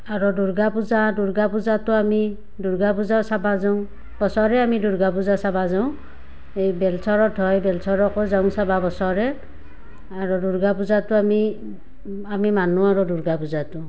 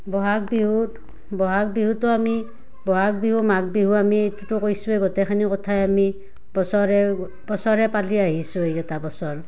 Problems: none marked